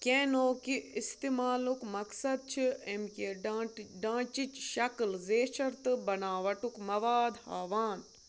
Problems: none marked